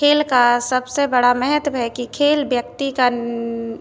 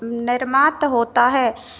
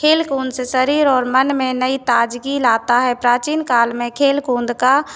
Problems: constant background noise